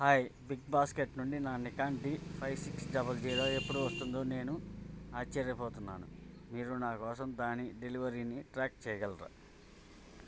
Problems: none marked